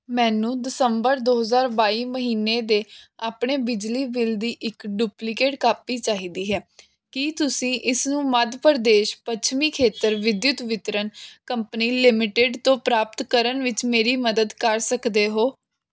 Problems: none marked